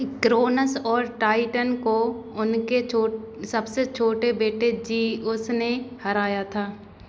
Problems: constant background noise